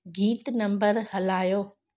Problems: none marked